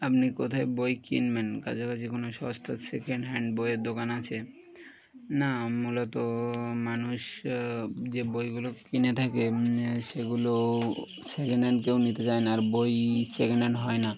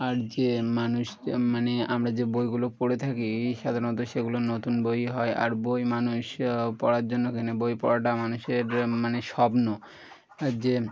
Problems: background sounds at intervals